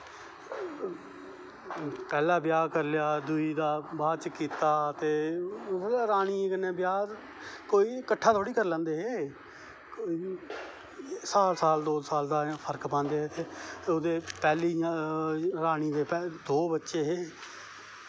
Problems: constant background noise, low volume